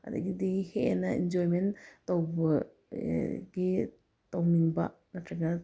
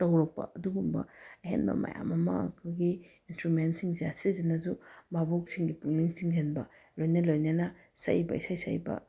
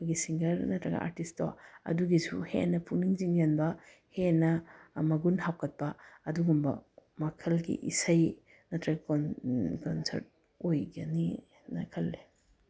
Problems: background sounds at intervals